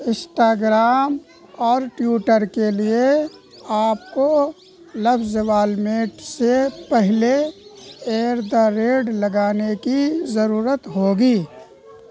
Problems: constant background noise